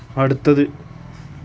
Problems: background sounds at intervals